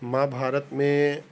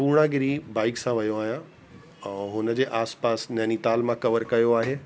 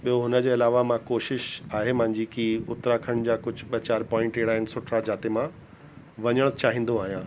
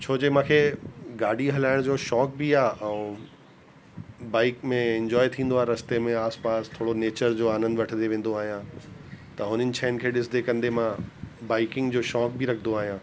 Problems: constant background noise